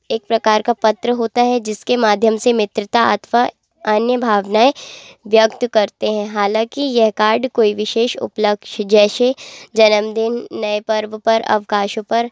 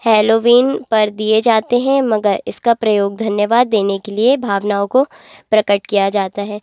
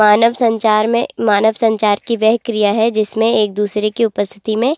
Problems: constant background noise